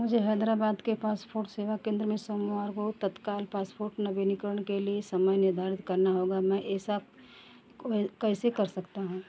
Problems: none marked